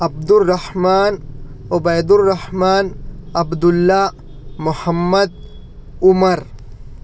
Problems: none marked